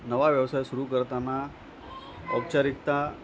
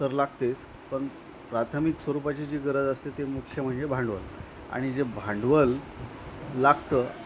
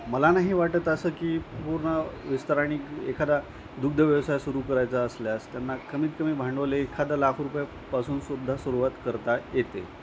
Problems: constant background noise, background conversations at intervals